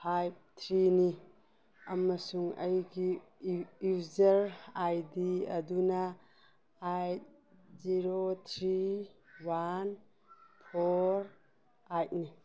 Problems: background sounds at intervals